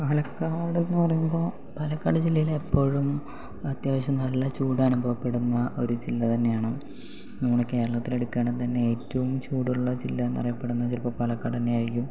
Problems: low volume